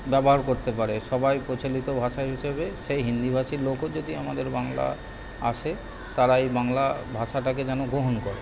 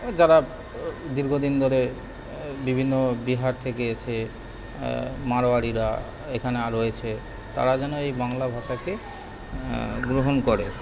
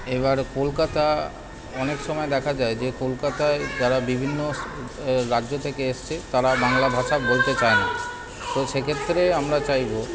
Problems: constant background noise, continuous background conversations